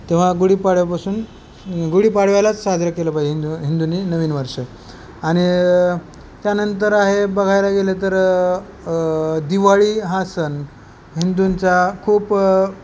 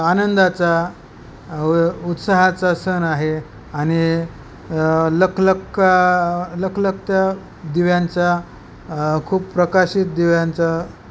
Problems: none marked